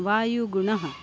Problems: constant background noise